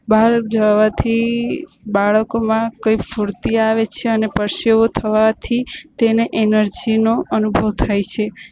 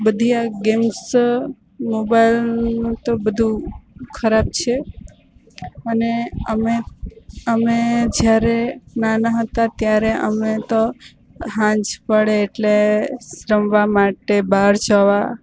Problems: constant background noise